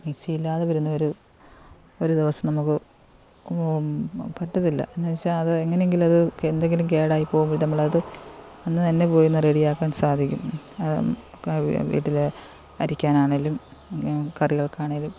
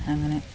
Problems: constant background noise